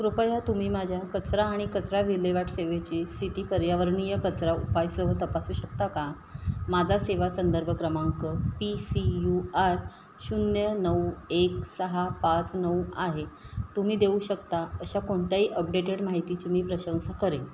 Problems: none marked